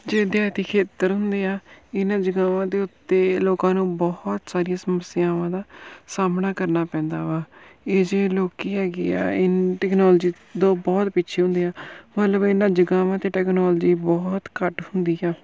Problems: background sounds at intervals